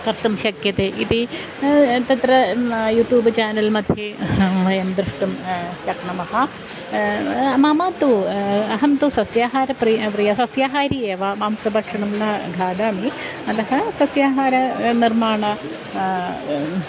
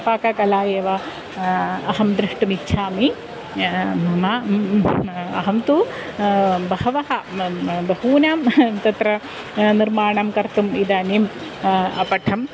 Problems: constant background noise